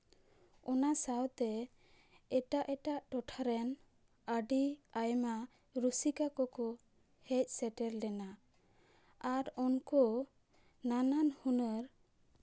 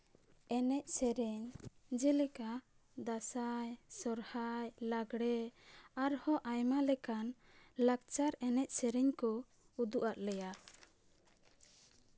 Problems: none marked